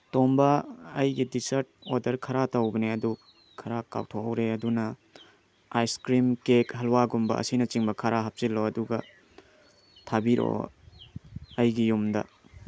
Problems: background sounds at intervals